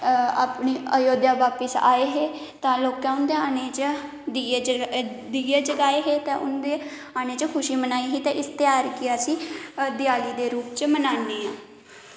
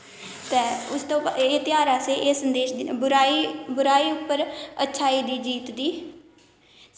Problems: constant background noise, echo